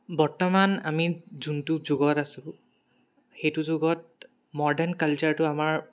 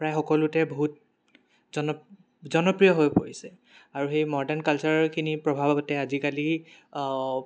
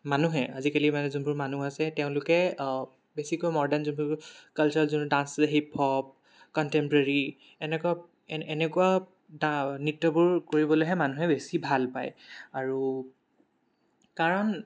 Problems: background sounds at intervals